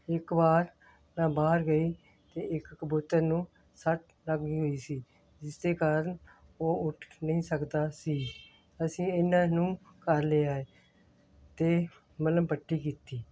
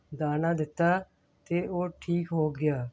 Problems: background sounds at intervals